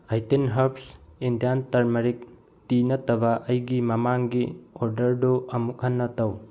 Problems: low volume